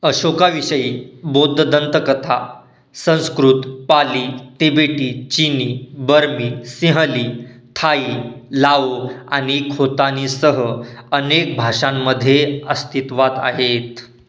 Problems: none marked